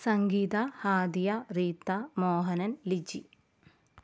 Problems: none marked